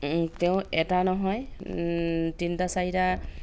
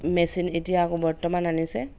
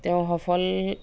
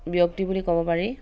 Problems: none marked